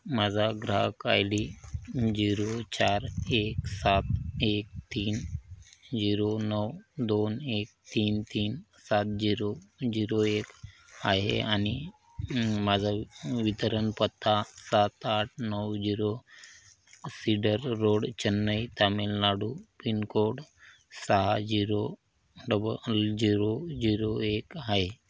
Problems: none marked